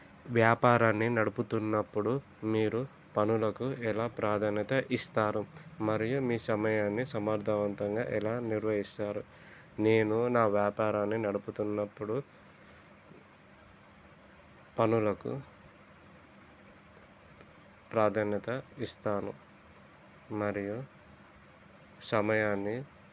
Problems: constant background noise, low volume